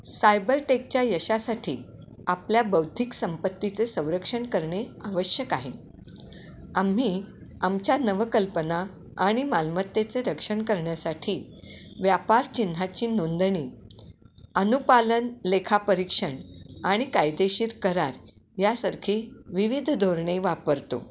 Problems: background sounds at intervals